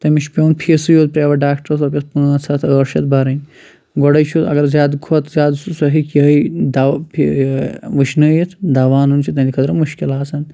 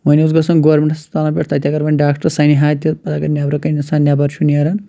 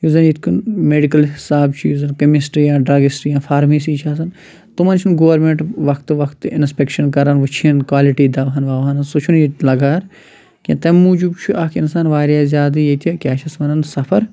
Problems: none marked